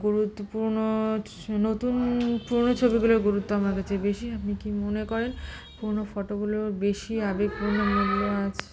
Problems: constant background noise, background conversations at intervals